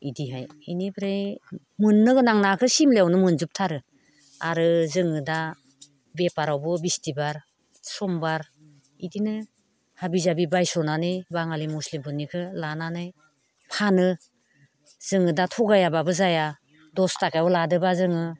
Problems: constant background noise